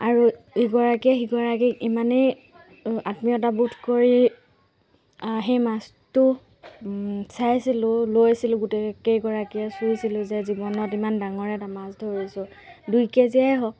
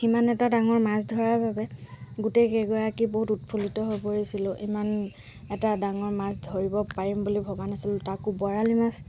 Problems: background sounds at intervals